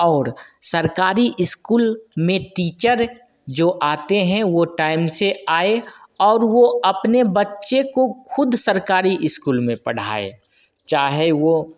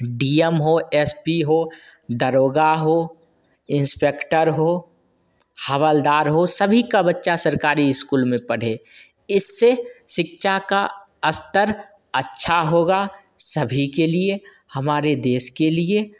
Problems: constant background noise, echo